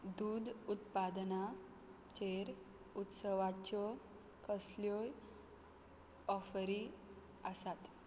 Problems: none marked